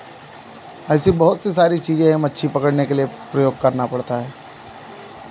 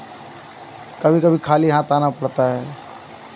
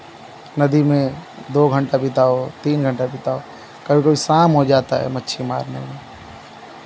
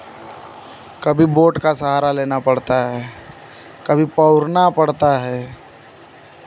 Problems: none marked